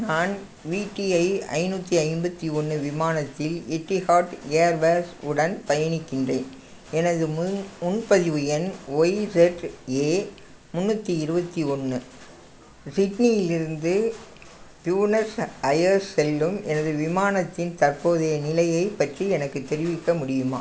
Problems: none marked